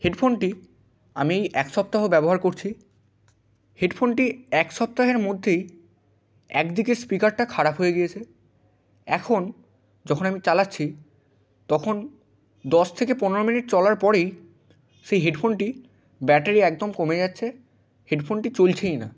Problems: constant background noise